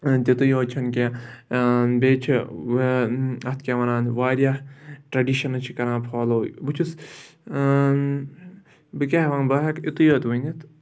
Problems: background sounds at intervals